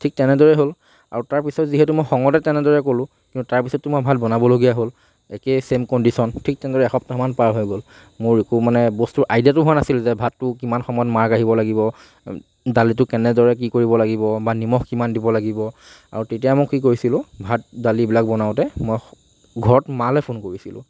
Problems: none marked